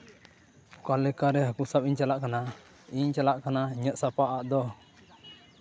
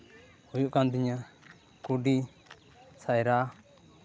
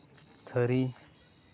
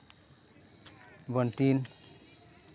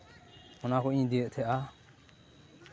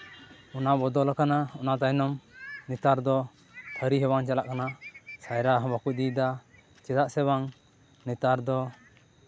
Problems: none marked